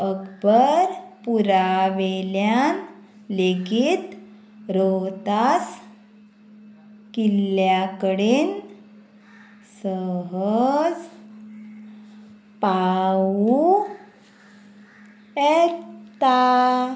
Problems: constant background noise